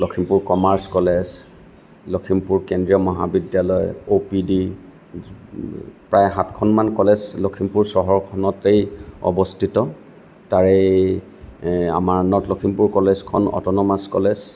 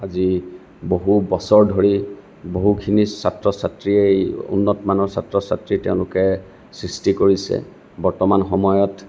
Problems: none marked